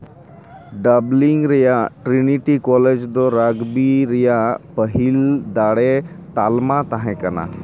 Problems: constant background noise, background conversations at intervals